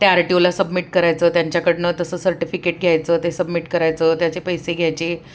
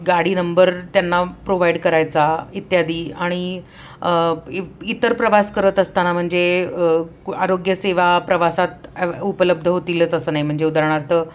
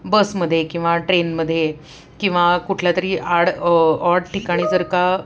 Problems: background sounds at intervals